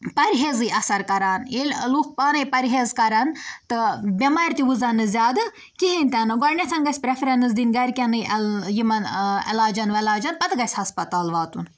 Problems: none marked